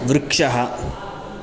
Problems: background sounds at intervals